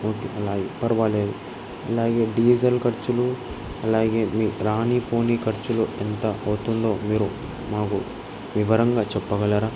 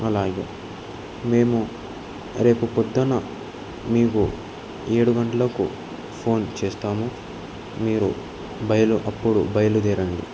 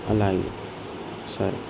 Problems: constant background noise